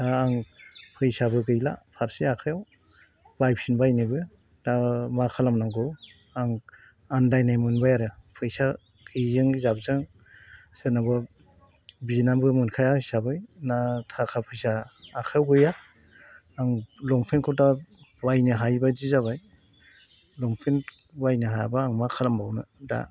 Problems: constant background noise